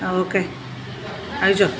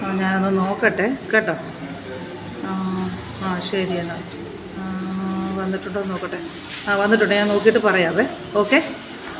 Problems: constant background noise